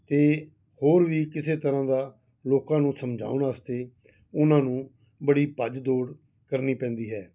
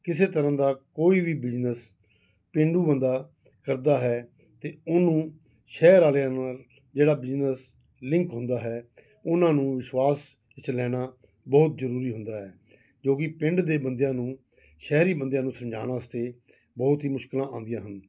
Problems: background sounds at intervals